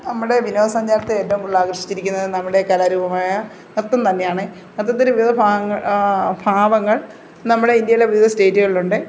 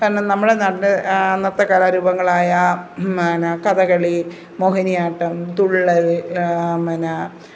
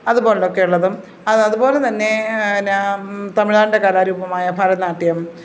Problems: none marked